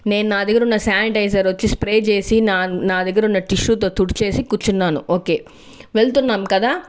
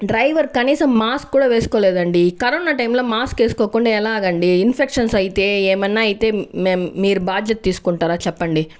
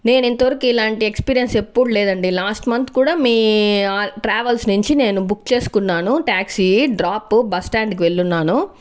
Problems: background sounds at intervals